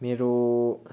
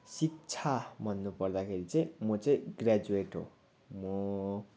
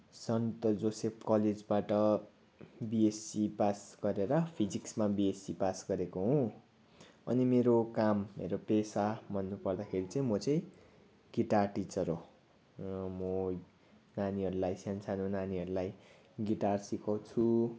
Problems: background sounds at intervals